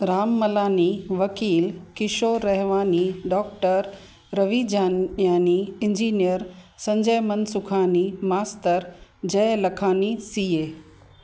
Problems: constant background noise